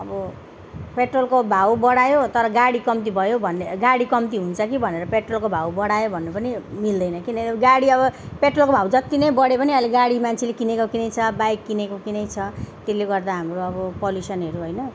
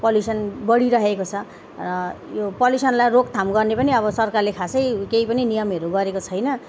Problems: background sounds at intervals